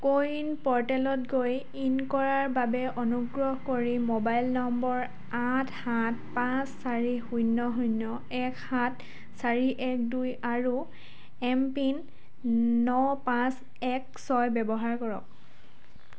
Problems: constant background noise